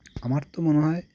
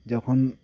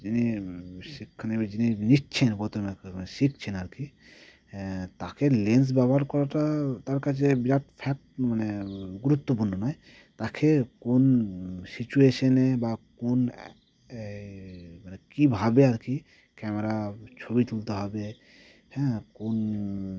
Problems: constant background noise